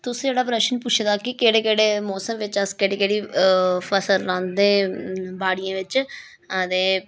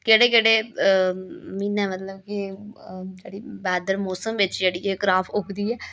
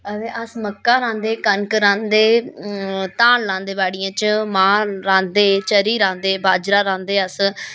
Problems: none marked